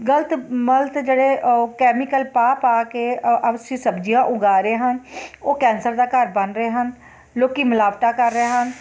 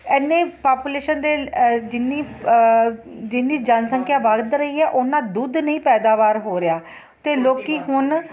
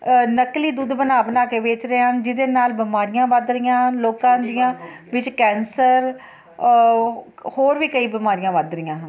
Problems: constant background noise